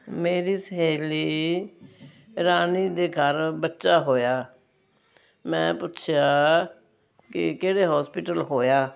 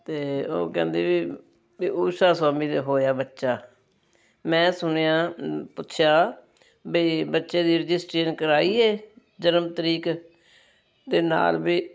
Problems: constant background noise